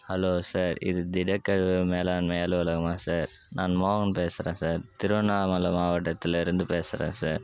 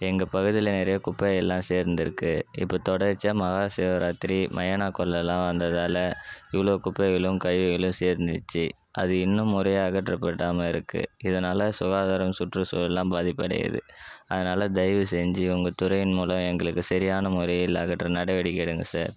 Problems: background sounds at intervals